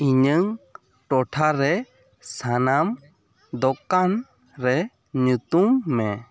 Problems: background sounds at intervals, background conversations at intervals